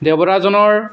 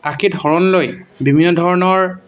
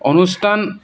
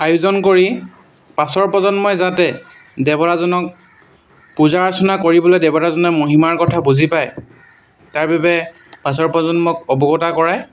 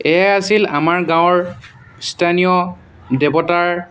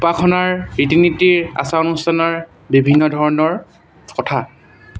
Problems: background sounds at intervals